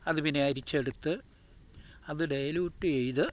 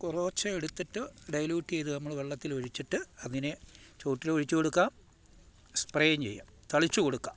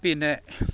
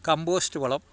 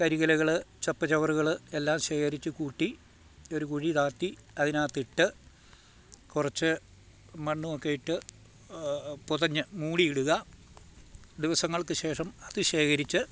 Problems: none marked